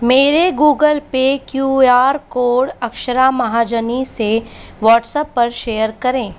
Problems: constant background noise